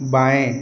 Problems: background sounds at intervals